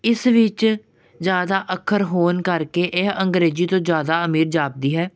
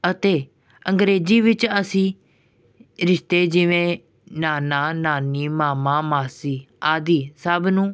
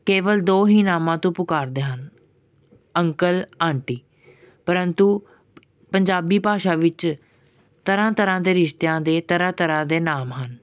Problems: none marked